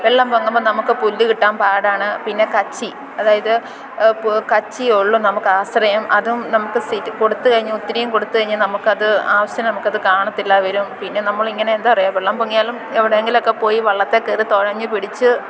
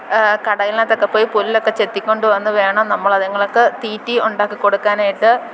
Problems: constant background noise